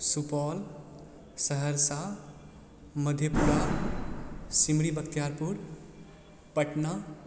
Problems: background sounds at intervals